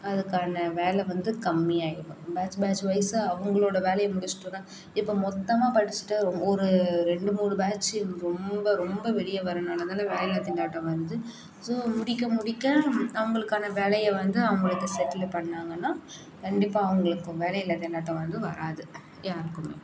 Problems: none marked